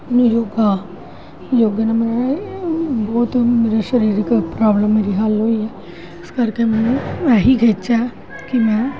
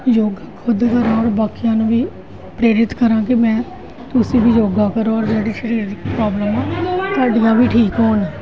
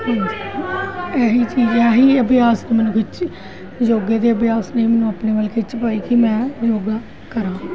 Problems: constant background noise, continuous background conversations